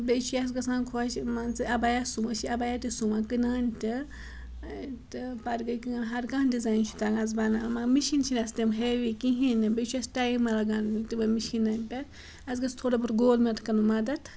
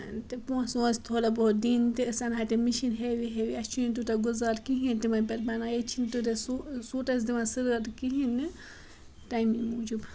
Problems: background sounds at intervals